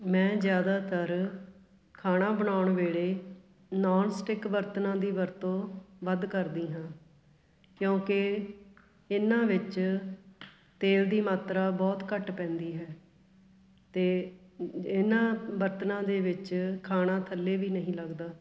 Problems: constant background noise, background conversations at intervals